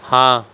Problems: constant background noise